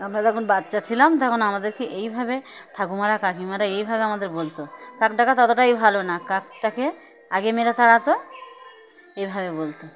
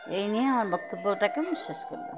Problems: constant background noise